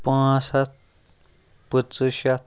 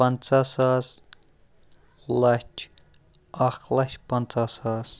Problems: none marked